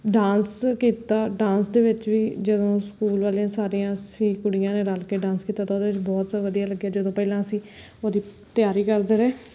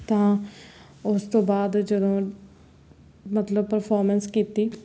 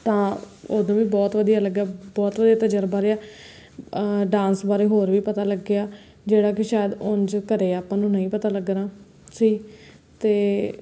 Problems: background sounds at intervals